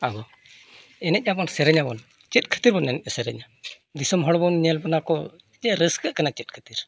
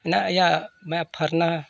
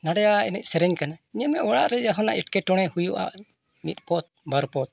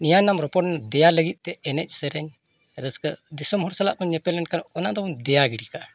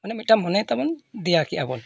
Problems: none marked